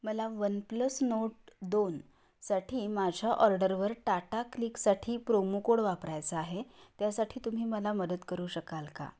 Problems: background sounds at intervals